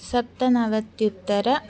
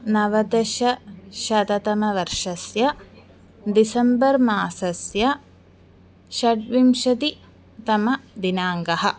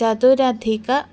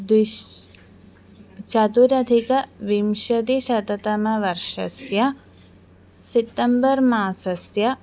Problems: none marked